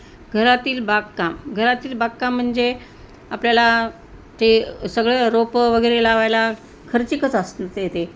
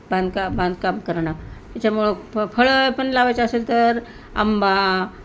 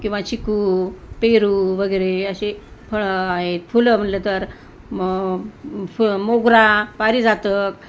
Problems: none marked